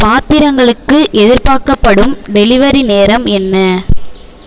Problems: none marked